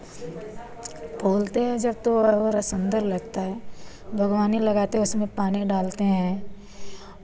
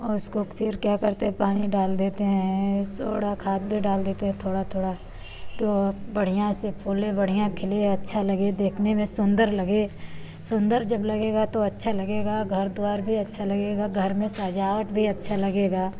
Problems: constant background noise